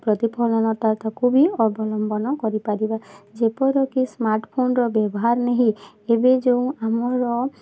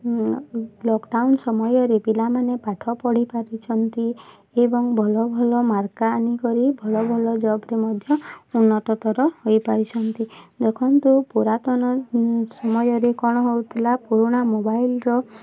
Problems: constant background noise, continuous background conversations